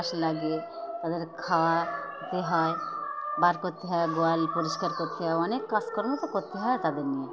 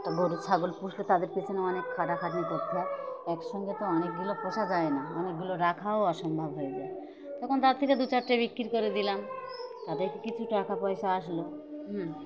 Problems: constant background noise, continuous background conversations